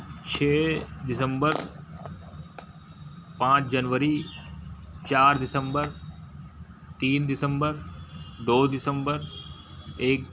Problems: background sounds at intervals